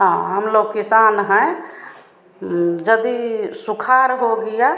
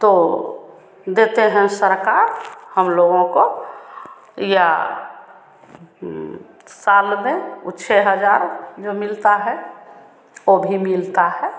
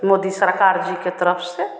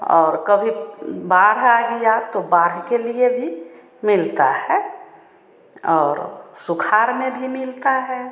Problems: constant background noise